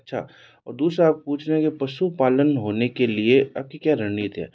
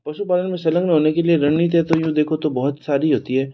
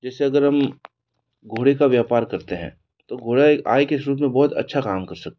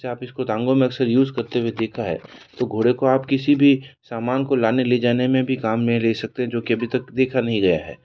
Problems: none marked